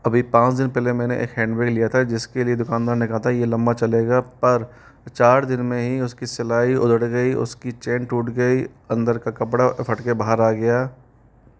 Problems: none marked